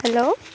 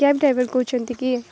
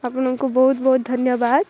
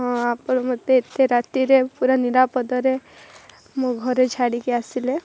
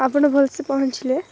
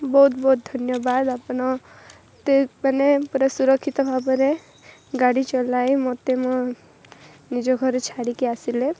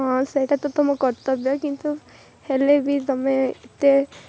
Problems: constant background noise